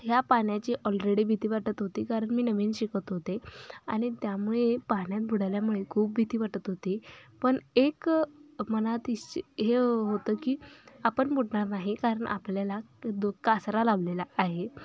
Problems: none marked